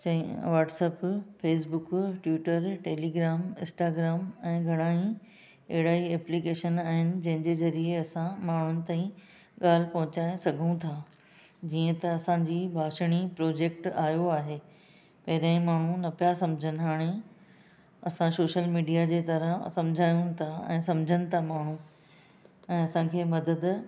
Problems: none marked